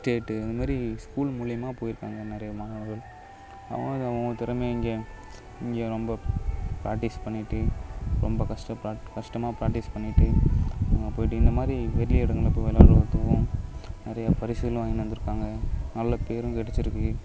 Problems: constant background noise